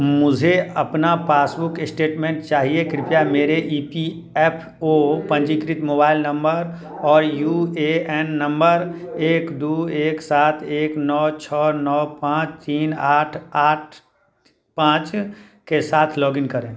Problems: background sounds at intervals